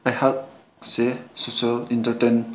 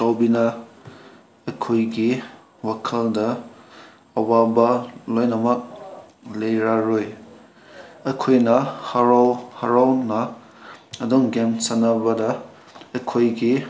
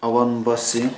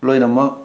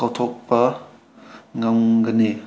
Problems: constant background noise